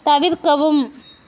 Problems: none marked